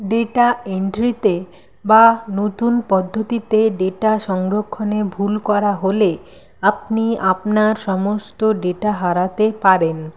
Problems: constant background noise